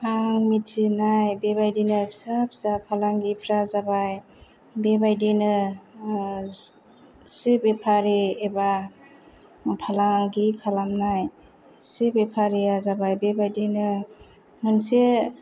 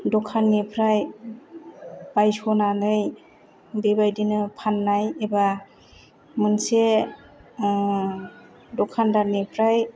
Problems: none marked